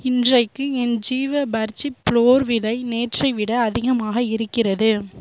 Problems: none marked